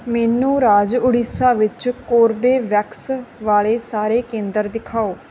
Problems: background sounds at intervals